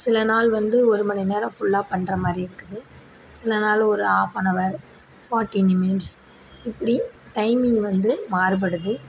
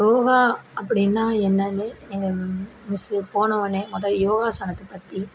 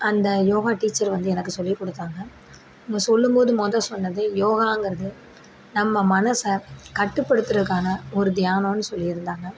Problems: background sounds at intervals